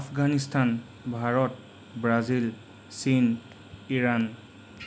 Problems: none marked